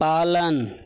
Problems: none marked